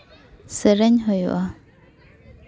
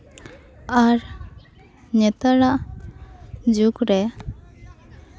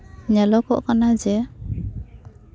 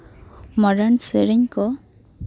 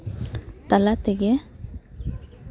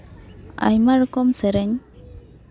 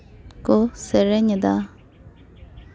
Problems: background sounds at intervals